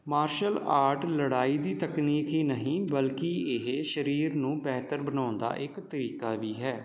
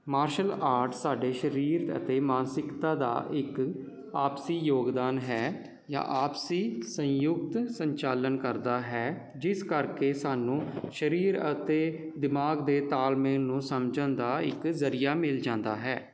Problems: constant background noise